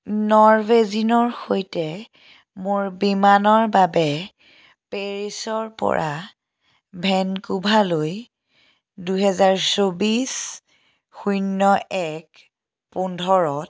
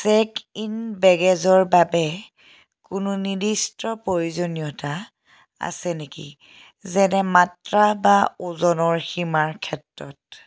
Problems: none marked